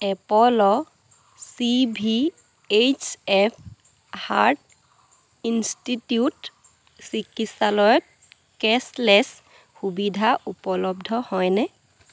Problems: constant background noise